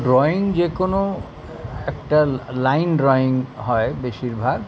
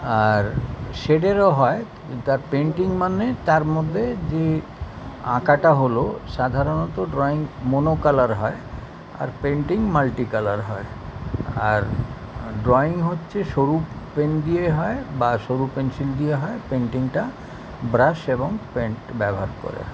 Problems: none marked